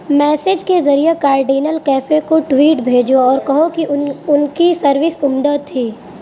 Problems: constant background noise